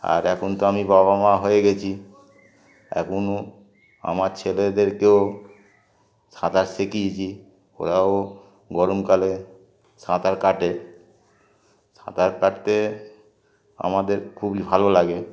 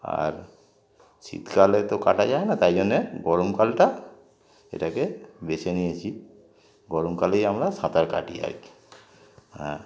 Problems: constant background noise, continuous background conversations